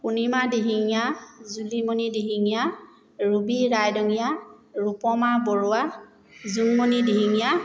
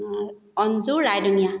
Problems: none marked